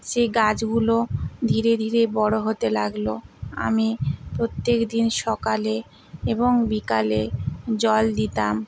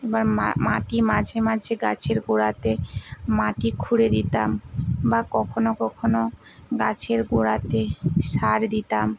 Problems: constant background noise